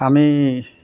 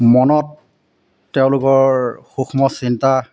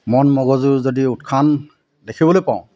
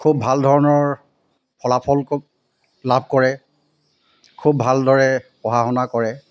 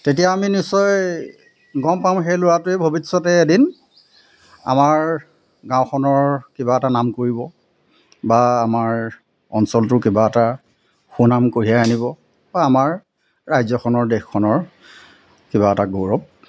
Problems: constant background noise